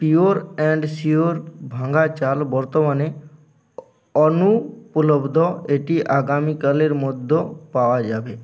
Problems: continuous background conversations